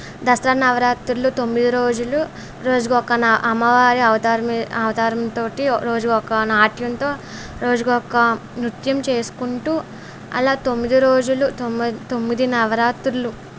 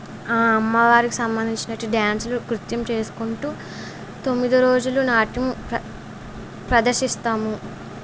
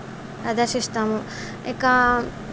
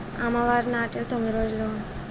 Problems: background conversations at intervals